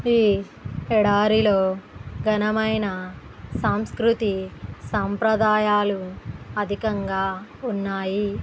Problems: background sounds at intervals